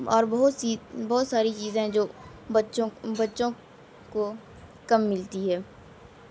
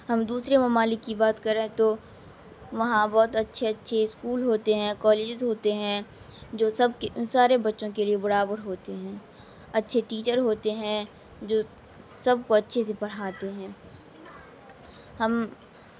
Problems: constant background noise, low volume